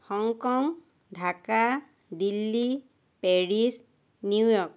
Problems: none marked